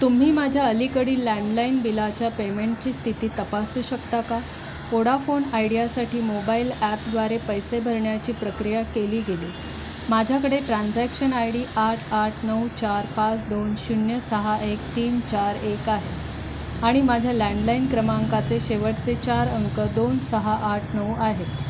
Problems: constant background noise